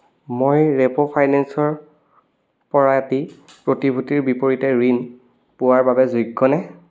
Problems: none marked